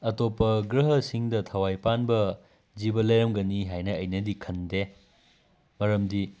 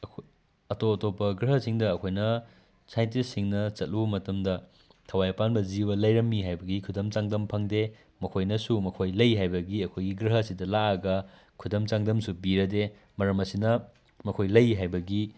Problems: none marked